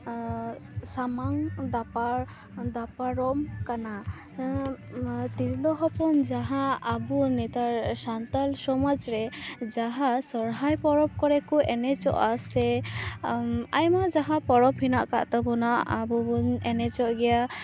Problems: constant background noise, continuous background conversations